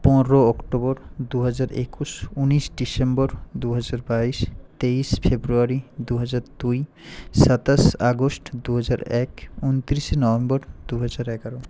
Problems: constant background noise